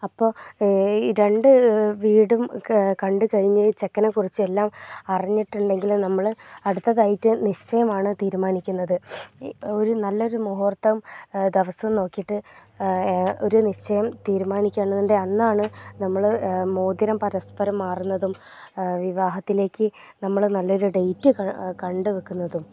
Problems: low volume